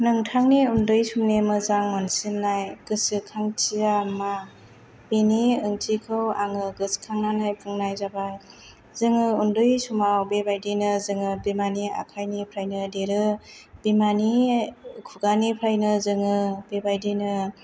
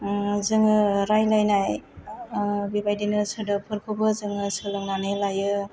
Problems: none marked